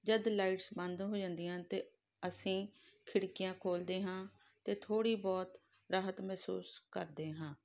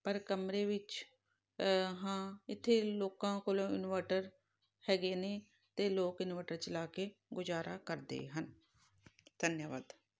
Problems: background sounds at intervals